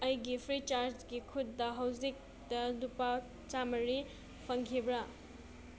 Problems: background sounds at intervals